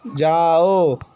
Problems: background sounds at intervals